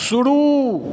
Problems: background sounds at intervals